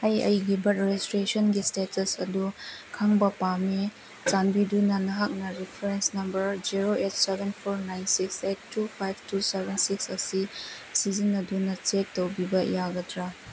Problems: background sounds at intervals, low volume